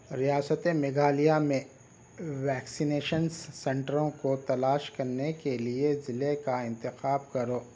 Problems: none marked